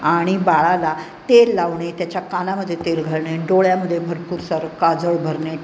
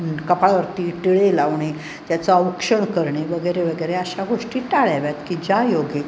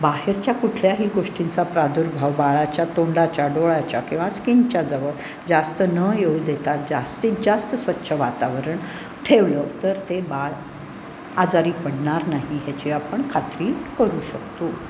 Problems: constant background noise